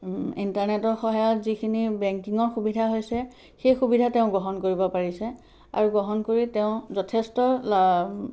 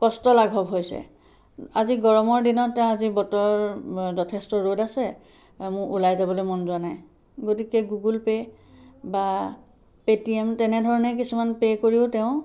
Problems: background sounds at intervals